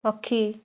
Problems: none marked